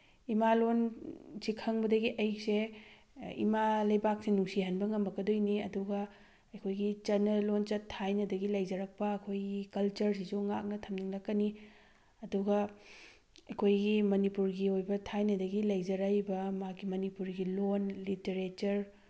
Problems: background sounds at intervals